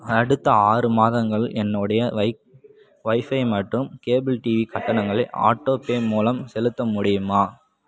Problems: background sounds at intervals